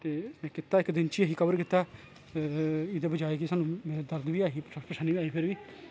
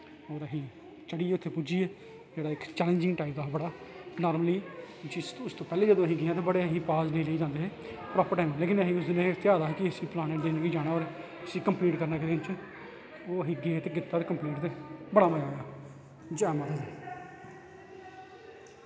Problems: constant background noise